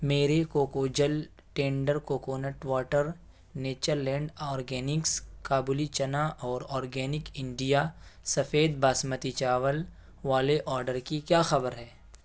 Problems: none marked